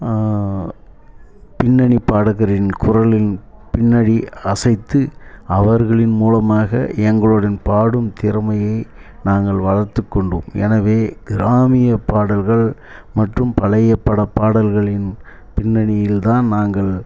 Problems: background sounds at intervals, low volume